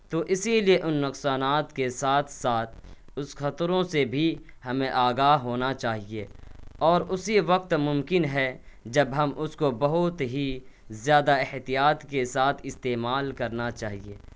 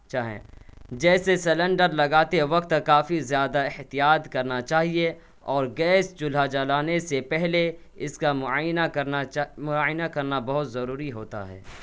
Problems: none marked